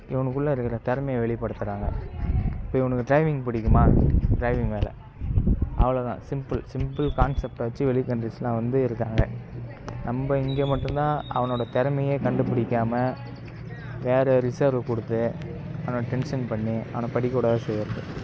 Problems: background sounds at intervals